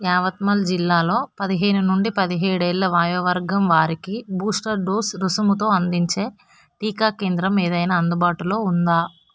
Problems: constant background noise